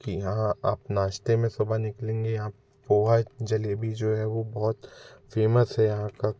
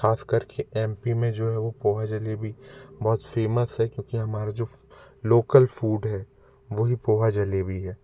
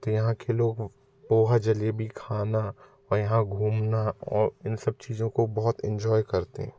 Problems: none marked